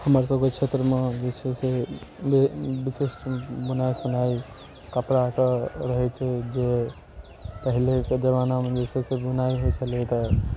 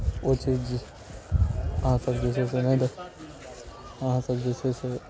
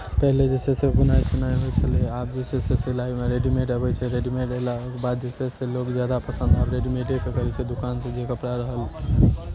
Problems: none marked